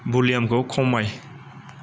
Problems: none marked